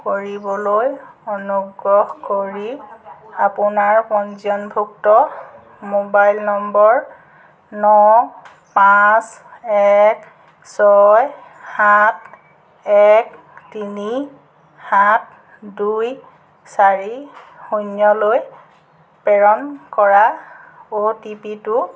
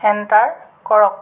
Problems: background sounds at intervals